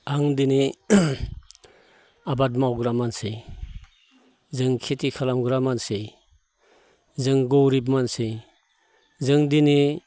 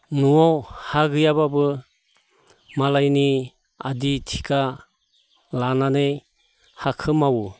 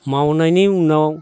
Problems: none marked